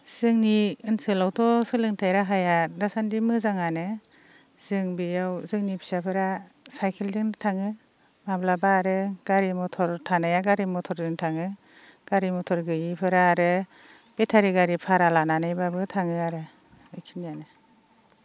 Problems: none marked